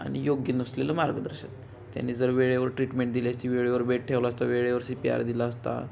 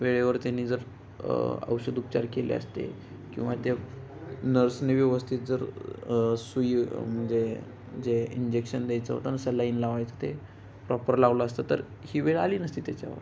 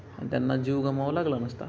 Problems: background conversations at intervals